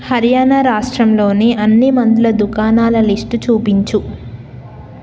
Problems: none marked